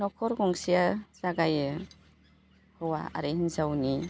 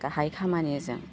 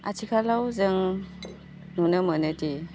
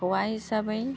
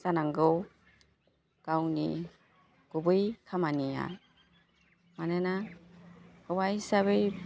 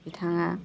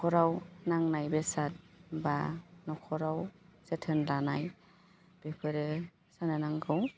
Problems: constant background noise